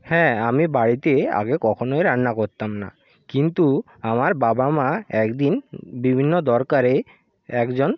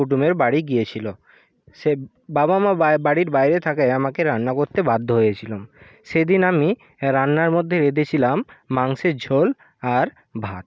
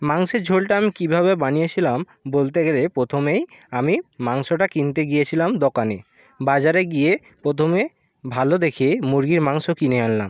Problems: constant background noise